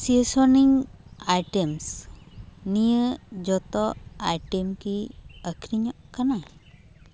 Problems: constant background noise